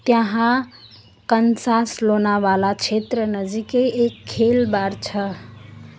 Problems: background sounds at intervals